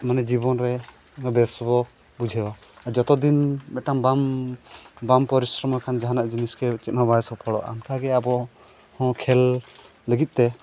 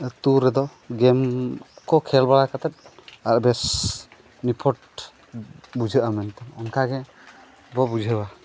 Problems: constant background noise